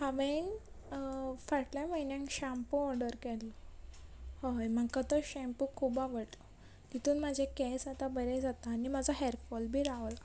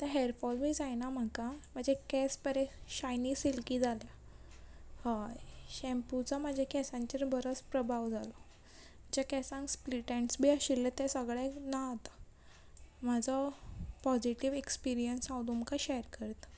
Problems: background sounds at intervals